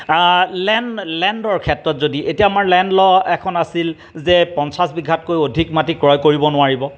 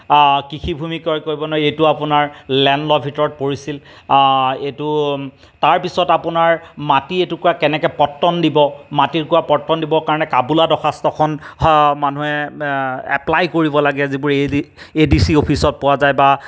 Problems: background sounds at intervals